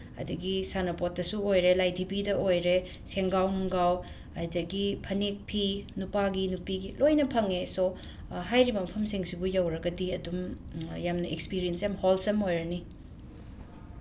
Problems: constant background noise